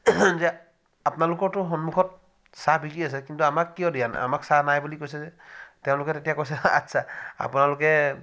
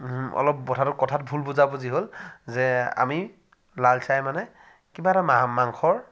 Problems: background sounds at intervals